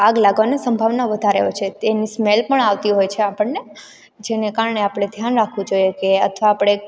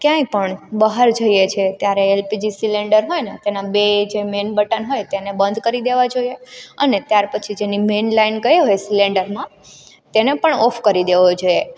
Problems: background sounds at intervals